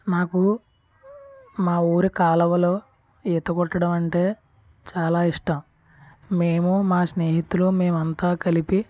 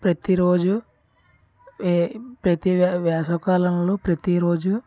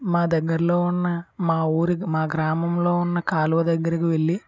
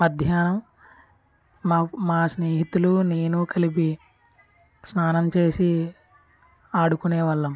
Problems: background sounds at intervals, background conversations at intervals